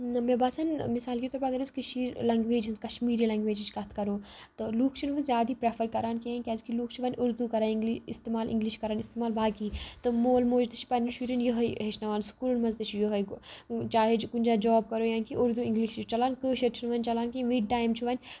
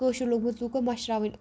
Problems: background sounds at intervals